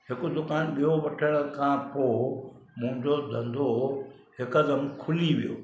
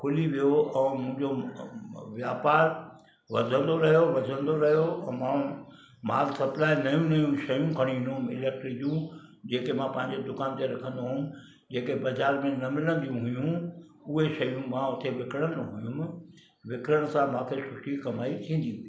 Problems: constant background noise, background conversations at intervals